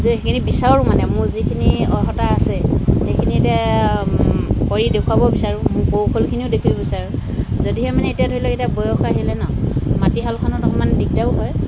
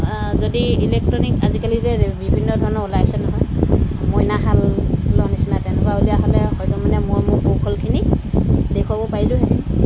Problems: constant background noise